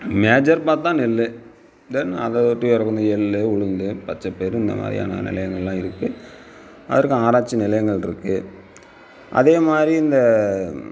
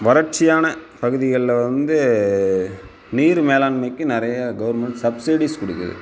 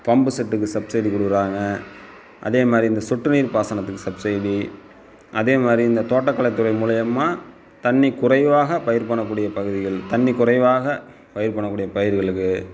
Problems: constant background noise